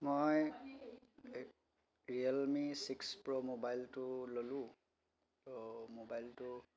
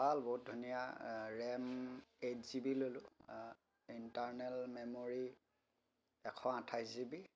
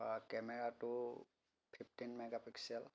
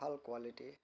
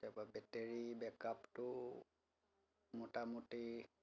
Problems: background sounds at intervals, continuous background conversations